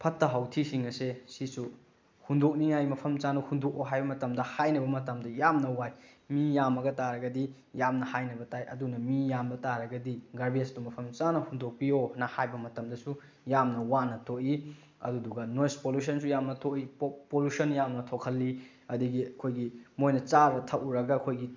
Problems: background sounds at intervals